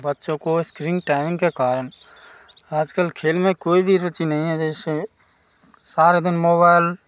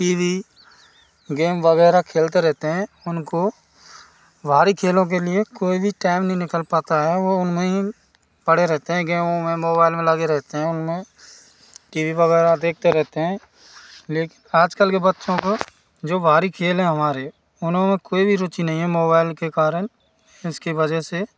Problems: background sounds at intervals